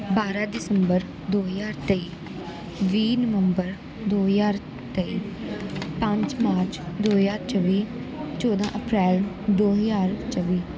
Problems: none marked